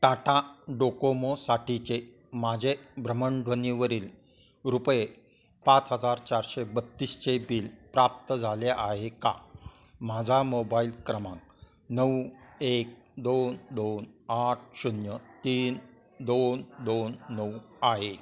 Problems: background sounds at intervals, continuous background conversations